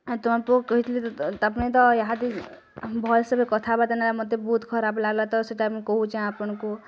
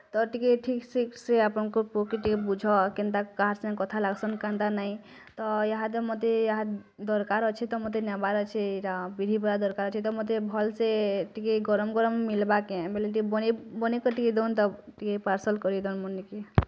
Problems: none marked